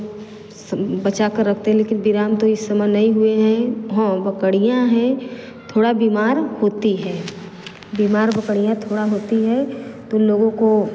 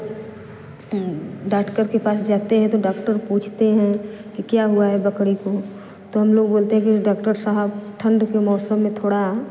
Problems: constant background noise